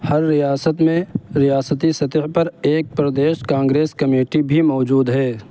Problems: constant background noise